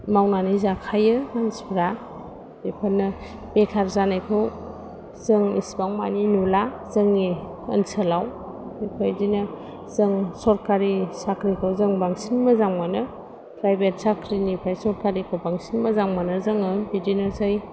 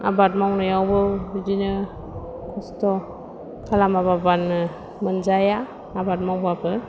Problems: low volume